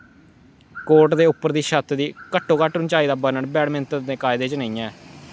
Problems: background sounds at intervals